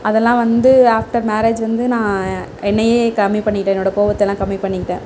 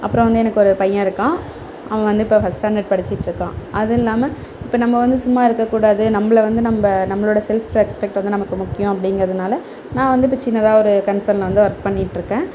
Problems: none marked